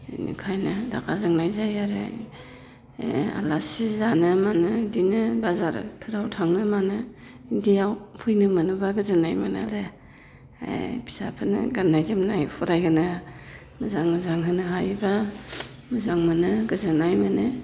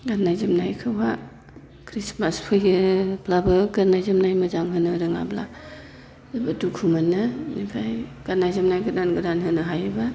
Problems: constant background noise